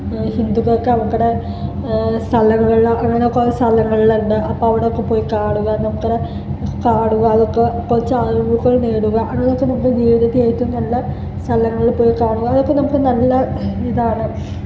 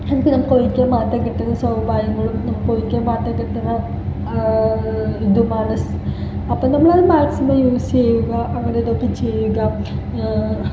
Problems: constant background noise, low volume